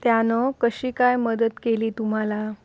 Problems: none marked